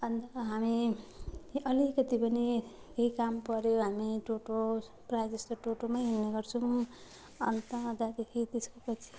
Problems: constant background noise